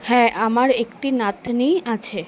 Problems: constant background noise